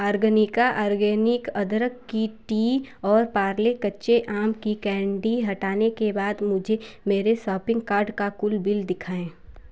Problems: constant background noise